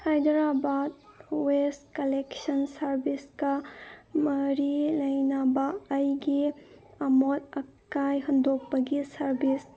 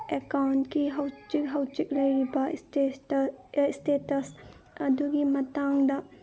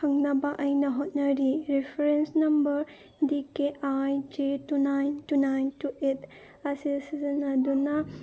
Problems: background sounds at intervals